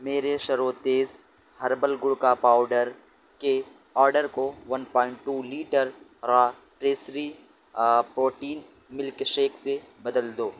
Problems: constant background noise